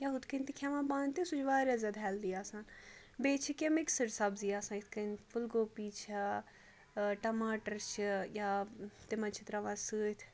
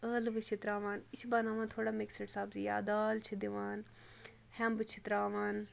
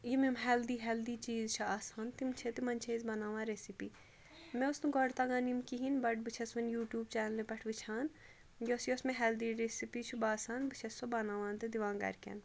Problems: none marked